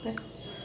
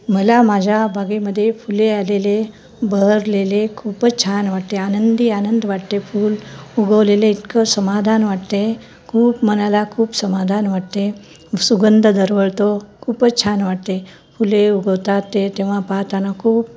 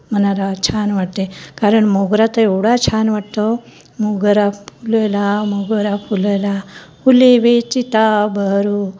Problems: none marked